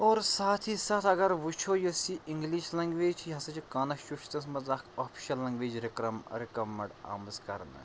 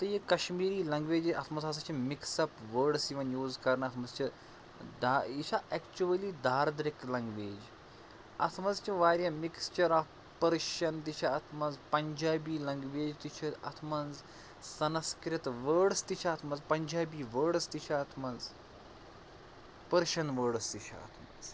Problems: constant background noise, low volume